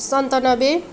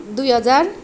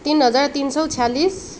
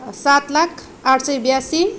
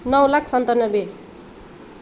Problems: background sounds at intervals